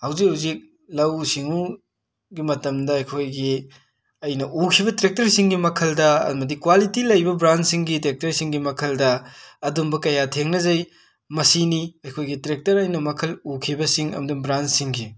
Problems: background sounds at intervals